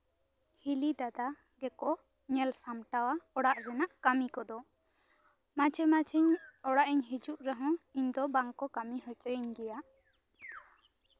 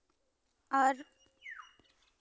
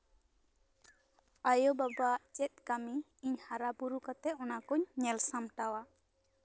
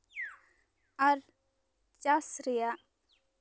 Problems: background conversations at intervals